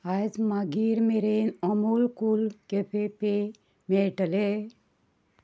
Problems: background sounds at intervals